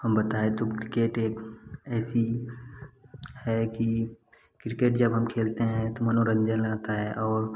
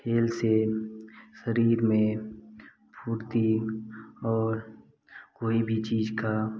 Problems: constant background noise